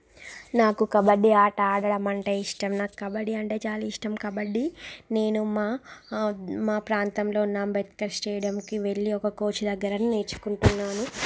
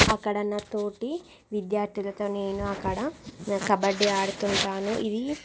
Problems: background sounds at intervals